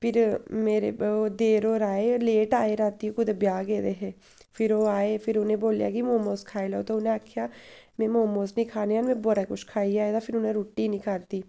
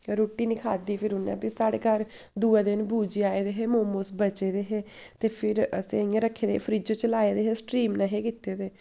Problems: none marked